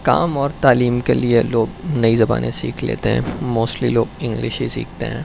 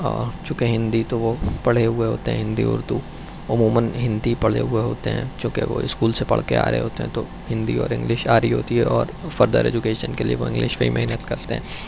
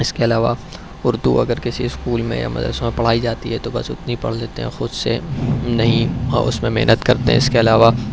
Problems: background sounds at intervals